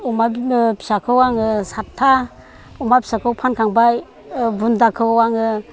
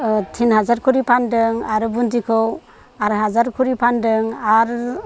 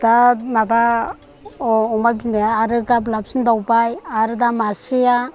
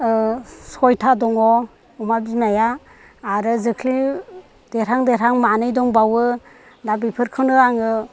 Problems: constant background noise